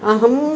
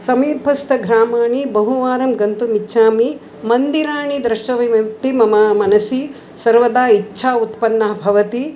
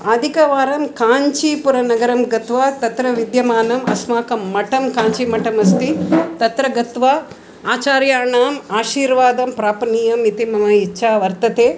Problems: background sounds at intervals